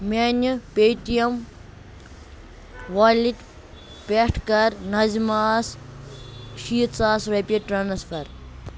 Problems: constant background noise